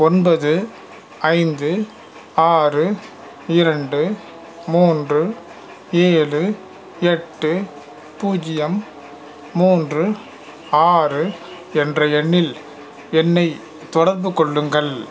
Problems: none marked